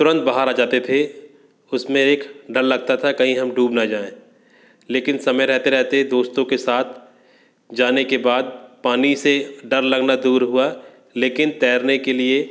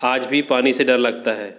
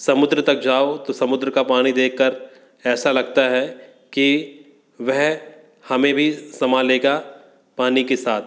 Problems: constant background noise